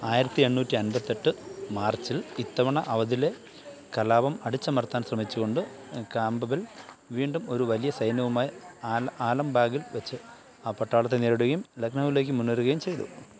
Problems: none marked